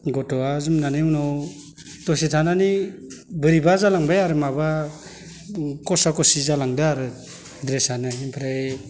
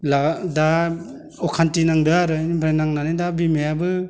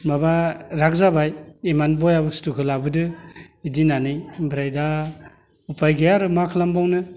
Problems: none marked